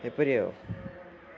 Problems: none marked